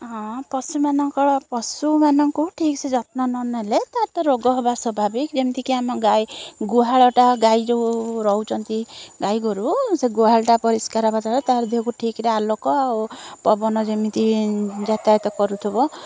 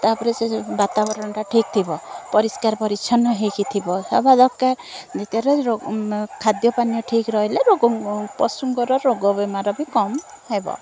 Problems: constant background noise